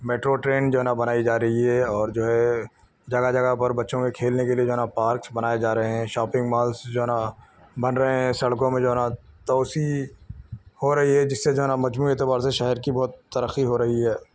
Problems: none marked